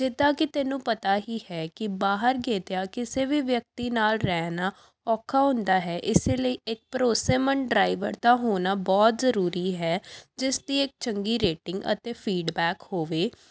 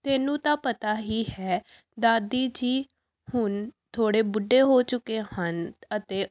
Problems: background sounds at intervals